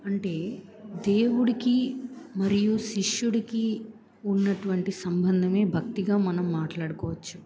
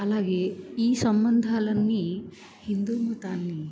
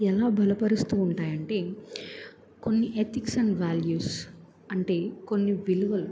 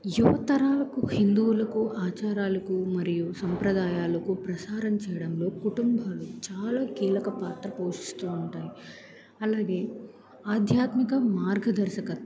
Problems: background conversations at intervals